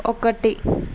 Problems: constant background noise